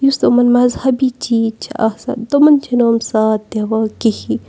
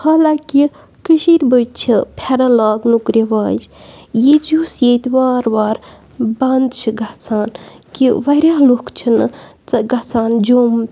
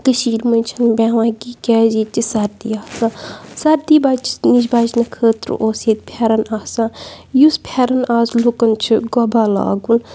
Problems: none marked